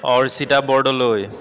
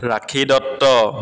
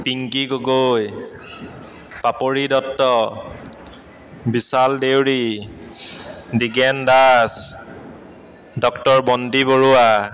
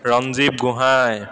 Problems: constant background noise, echo